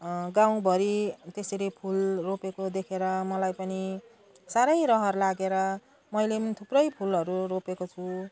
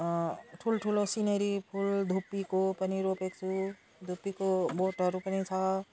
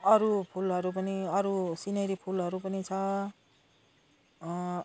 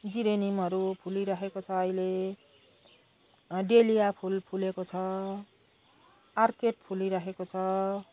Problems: background conversations at intervals